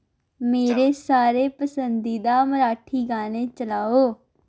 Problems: none marked